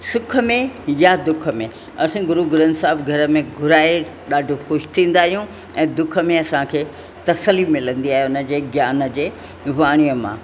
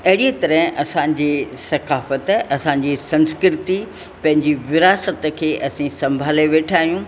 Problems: constant background noise, echo